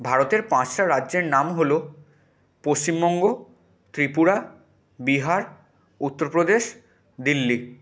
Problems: none marked